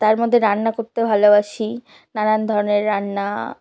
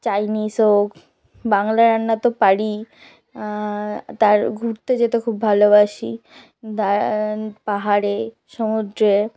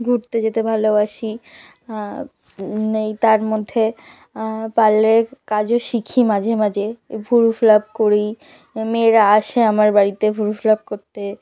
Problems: background conversations at intervals